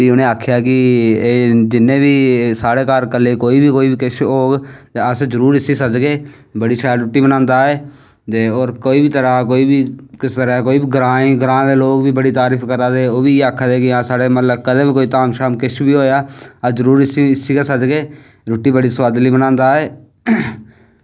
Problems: none marked